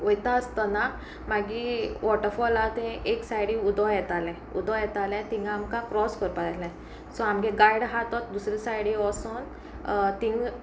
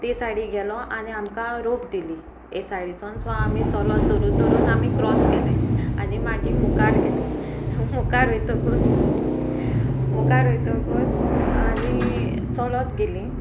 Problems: constant background noise, background conversations at intervals